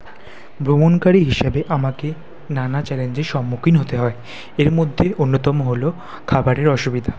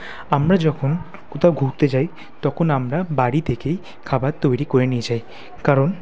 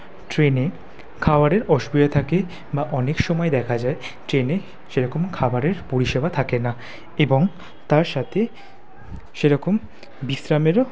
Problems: background conversations at intervals